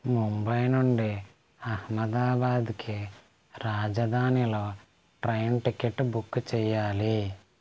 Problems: constant background noise